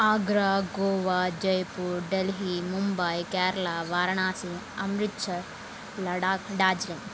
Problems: none marked